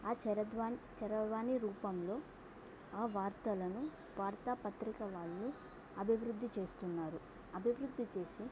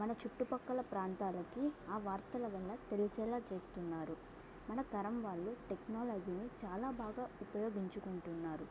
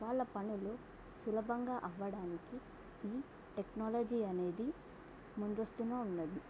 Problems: none marked